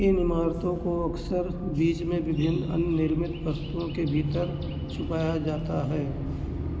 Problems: constant background noise